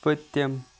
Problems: background sounds at intervals